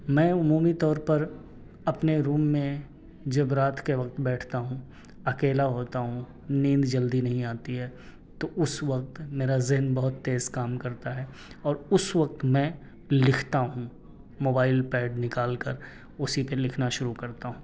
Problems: none marked